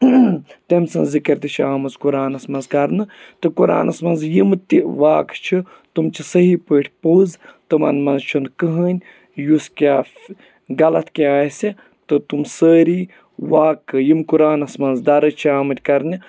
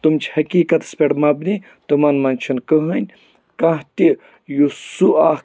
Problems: background sounds at intervals